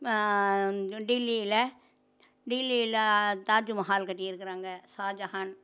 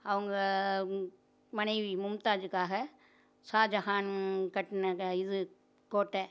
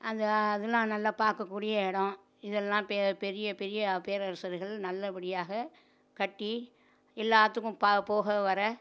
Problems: none marked